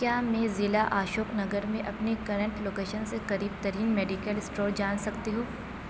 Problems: constant background noise